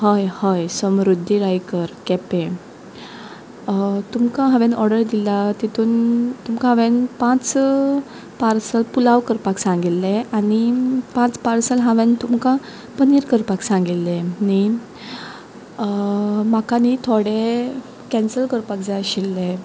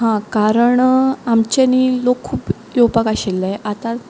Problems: background sounds at intervals